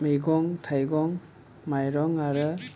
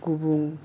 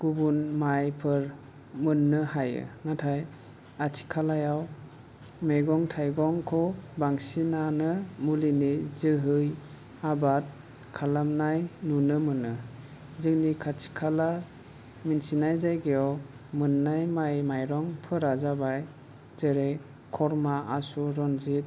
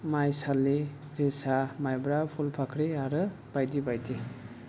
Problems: none marked